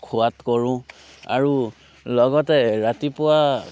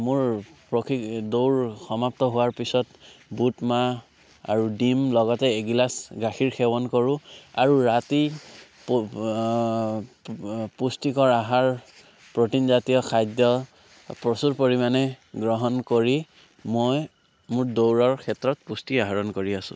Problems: background sounds at intervals